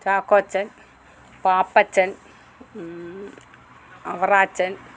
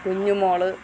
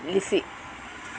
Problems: none marked